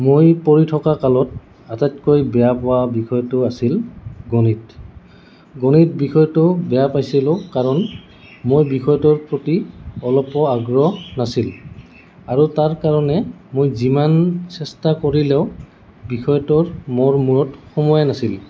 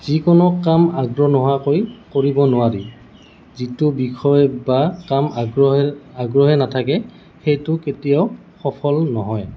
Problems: constant background noise